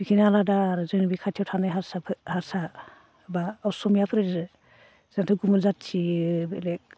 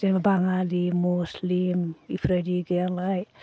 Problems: constant background noise